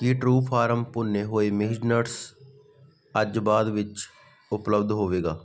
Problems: none marked